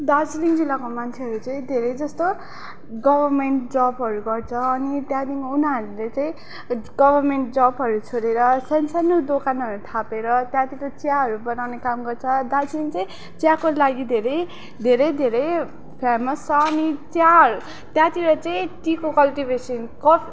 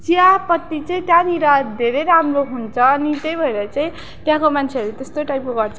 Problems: background conversations at intervals